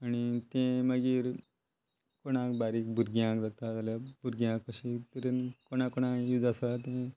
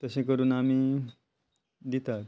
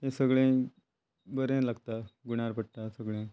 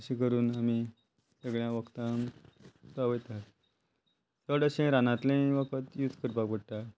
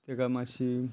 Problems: constant background noise